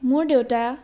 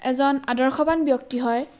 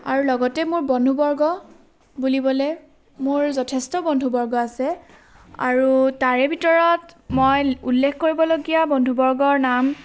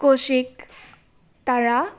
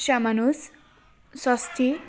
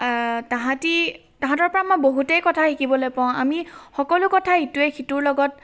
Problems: none marked